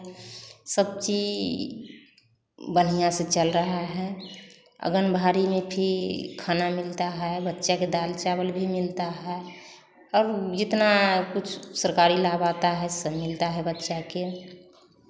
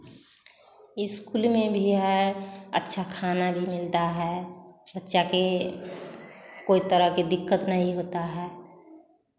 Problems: none marked